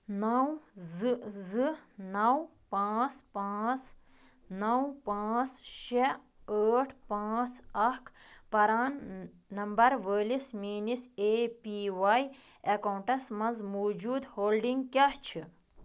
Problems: none marked